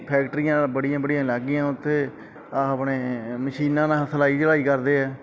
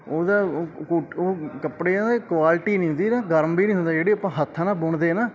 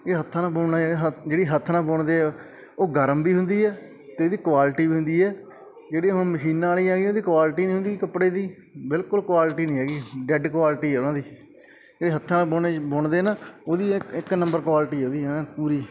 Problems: background sounds at intervals, background conversations at intervals